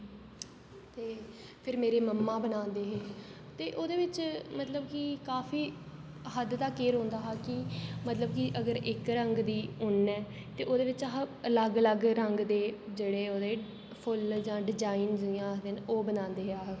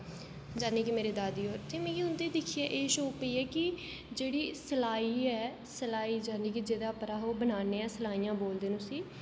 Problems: constant background noise, low volume